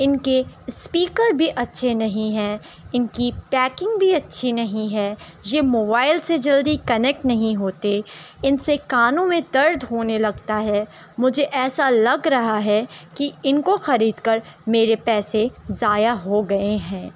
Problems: constant background noise